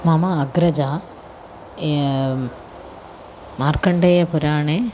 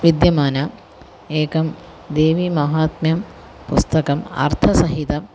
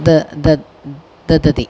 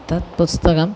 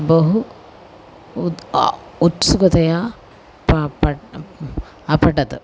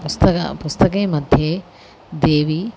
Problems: constant background noise